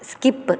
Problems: none marked